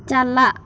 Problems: constant background noise